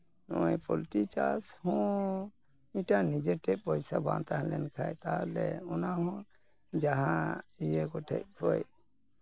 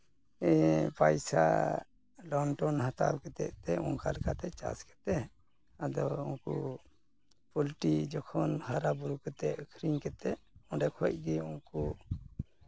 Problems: background sounds at intervals